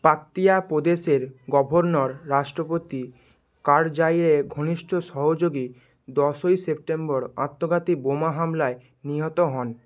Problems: background sounds at intervals